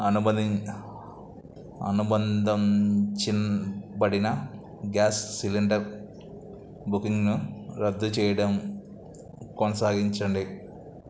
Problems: continuous background conversations